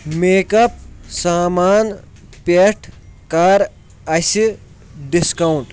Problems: background sounds at intervals